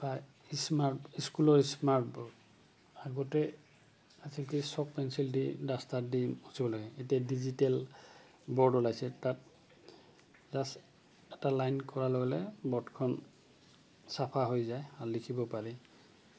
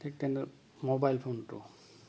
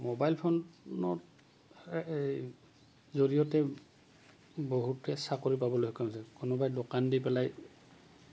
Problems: background sounds at intervals